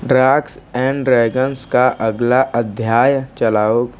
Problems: background sounds at intervals